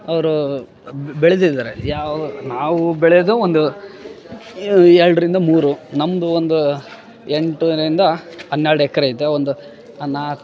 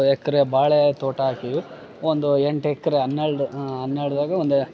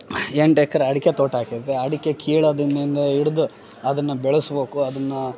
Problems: background sounds at intervals, background conversations at intervals